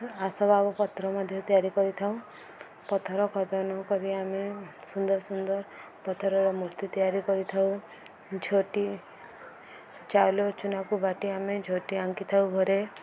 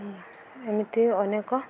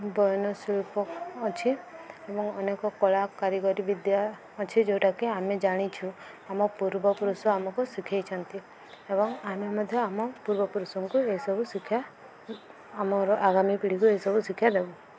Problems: none marked